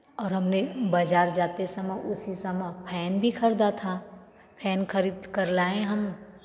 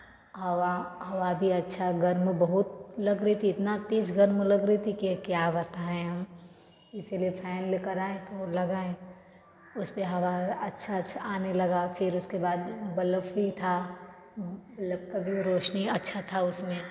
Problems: background sounds at intervals, continuous background conversations, echo